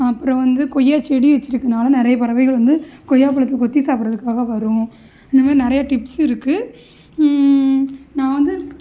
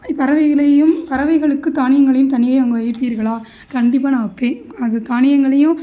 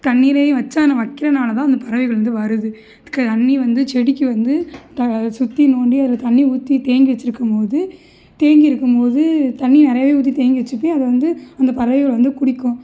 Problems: none marked